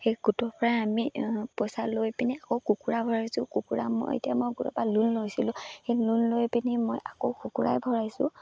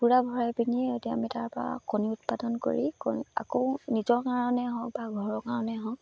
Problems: none marked